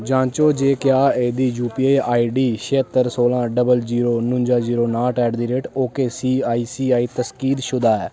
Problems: constant background noise